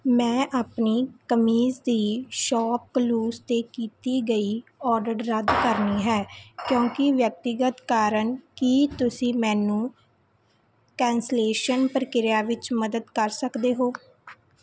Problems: background sounds at intervals